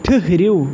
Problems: constant background noise